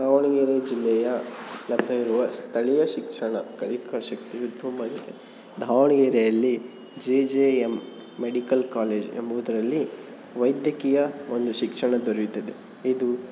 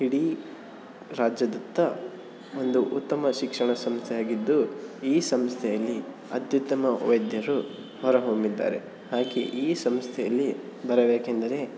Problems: constant background noise